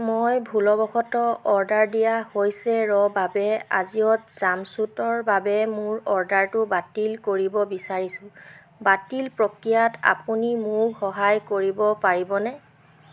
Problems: constant background noise